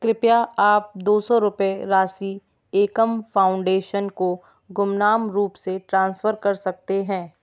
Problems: none marked